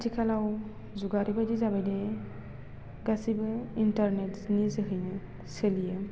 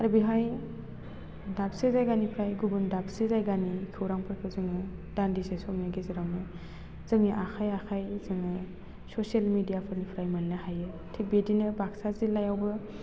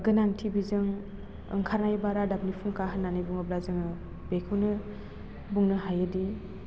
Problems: constant background noise